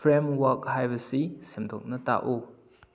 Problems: low volume